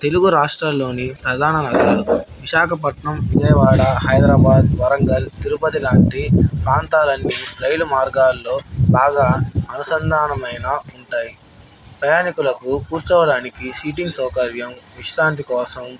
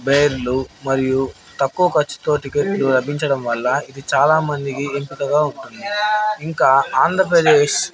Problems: background sounds at intervals, background conversations at intervals